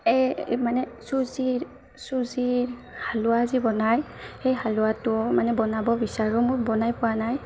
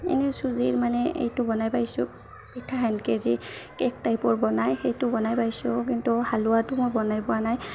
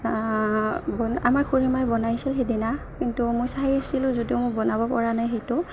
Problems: constant background noise, background conversations at intervals